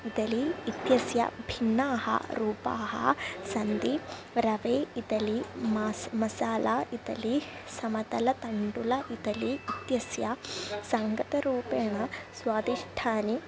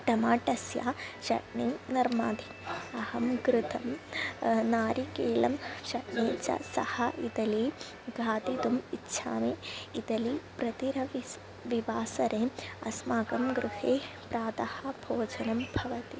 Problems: constant background noise